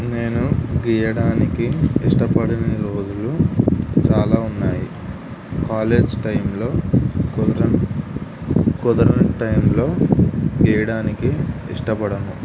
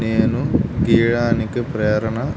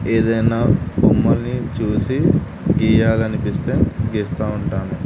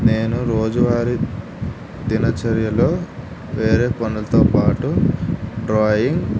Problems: constant background noise